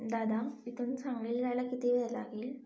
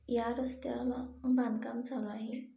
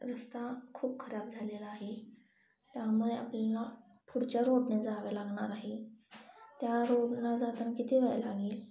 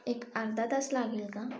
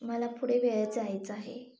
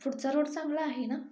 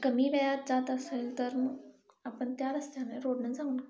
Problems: background sounds at intervals, echo